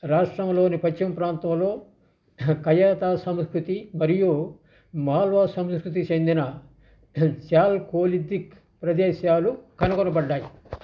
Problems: constant background noise